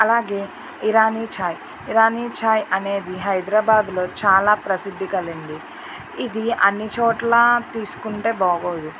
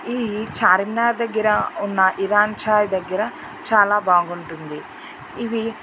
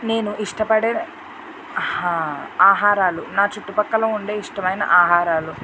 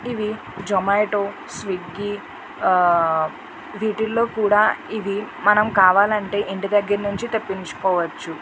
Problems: none marked